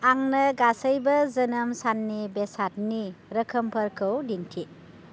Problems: none marked